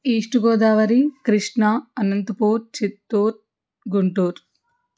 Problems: none marked